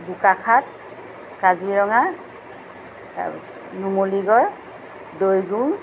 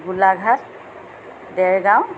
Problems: constant background noise